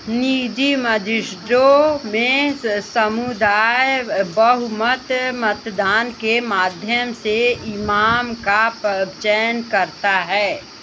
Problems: constant background noise